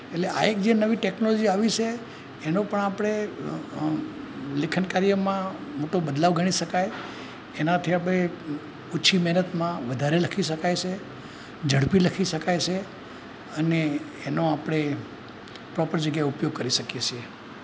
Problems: constant background noise